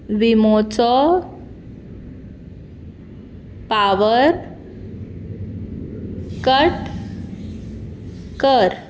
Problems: none marked